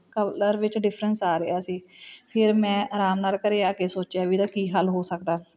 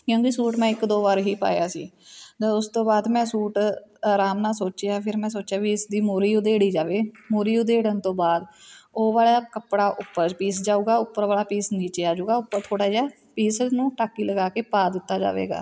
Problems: constant background noise, background conversations at intervals